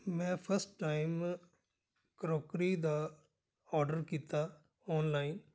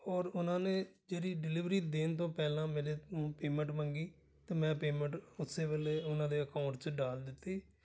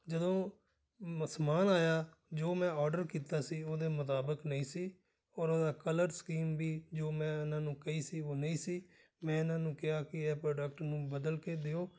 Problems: background sounds at intervals